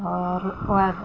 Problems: constant background noise